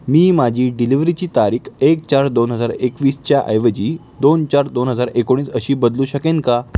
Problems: none marked